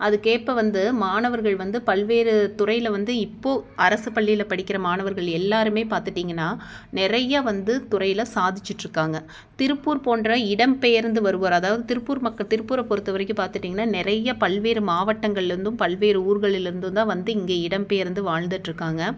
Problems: none marked